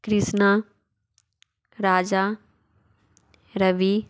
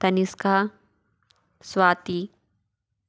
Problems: none marked